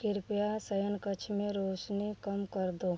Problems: background sounds at intervals